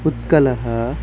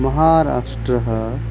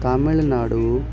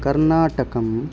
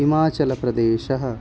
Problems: none marked